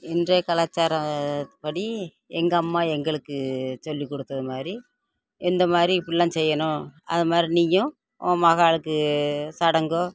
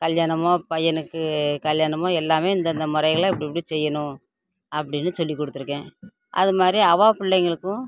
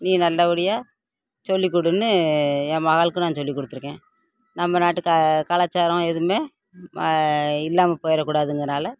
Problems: constant background noise